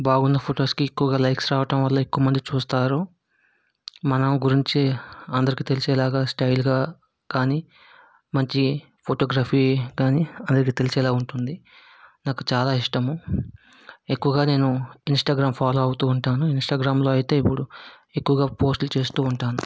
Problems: background sounds at intervals